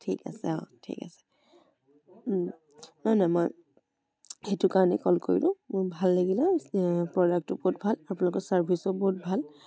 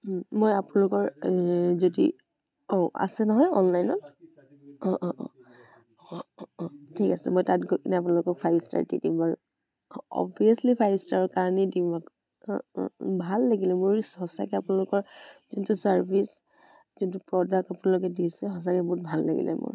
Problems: continuous background conversations